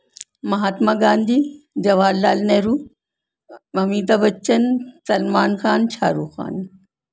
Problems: none marked